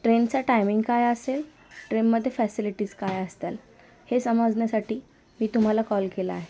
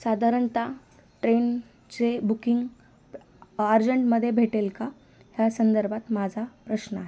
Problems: constant background noise